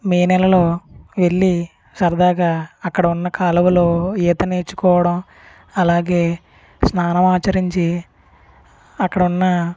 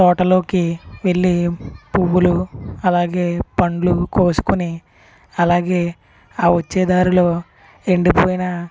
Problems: constant background noise, background conversations at intervals